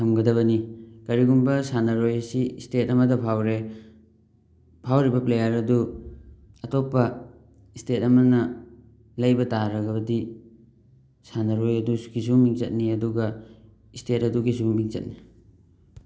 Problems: none marked